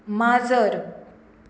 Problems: none marked